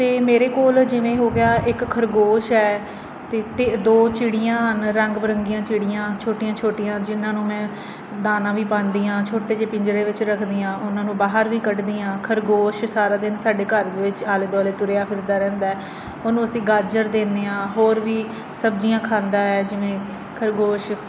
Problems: constant background noise